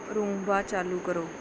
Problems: background sounds at intervals